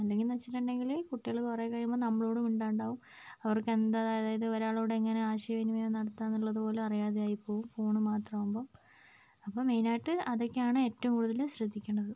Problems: low volume